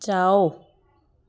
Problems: constant background noise